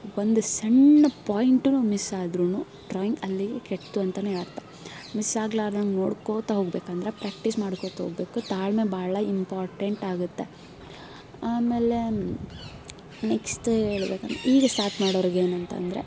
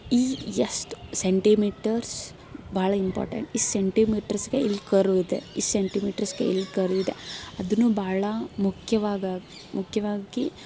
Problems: background sounds at intervals